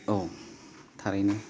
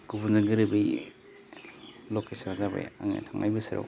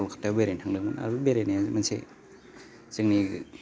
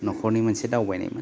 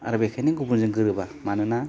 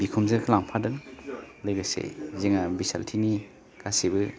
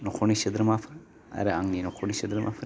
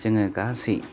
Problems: constant background noise